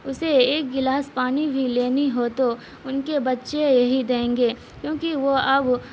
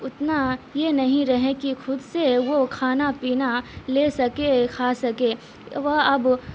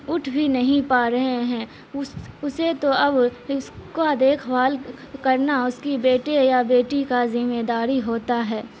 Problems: constant background noise